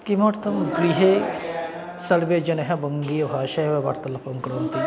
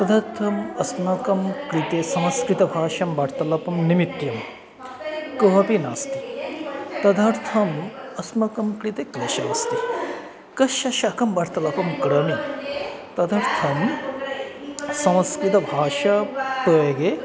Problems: none marked